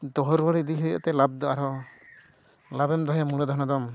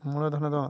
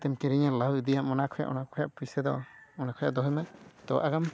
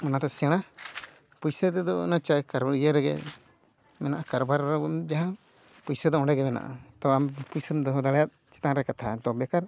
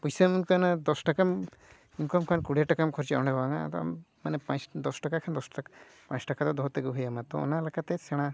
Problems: none marked